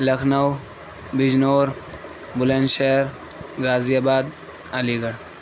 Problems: constant background noise